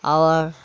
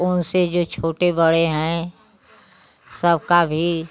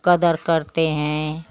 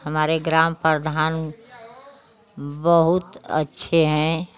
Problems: constant background noise